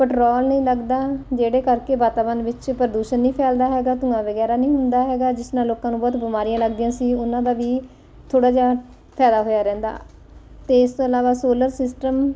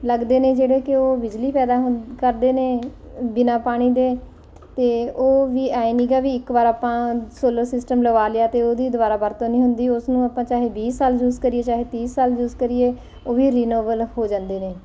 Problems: none marked